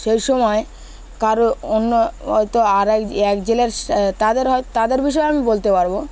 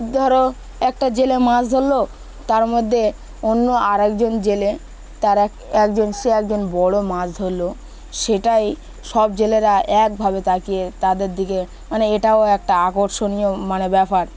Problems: constant background noise, continuous background conversations